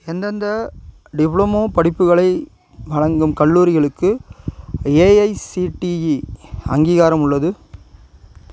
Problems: none marked